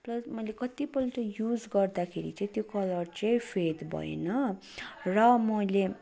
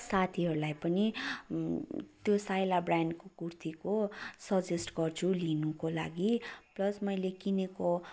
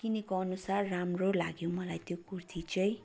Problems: continuous background conversations